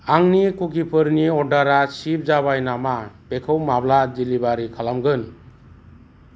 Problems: constant background noise